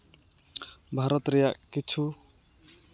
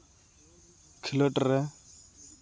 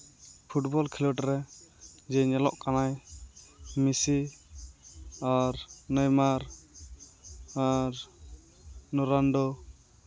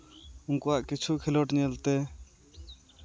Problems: none marked